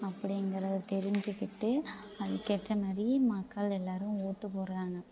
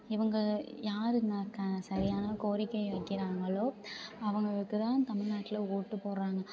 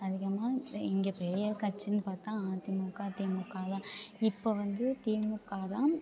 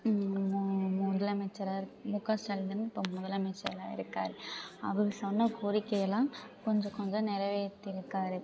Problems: background sounds at intervals, low volume